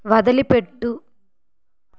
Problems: none marked